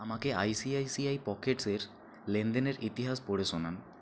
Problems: constant background noise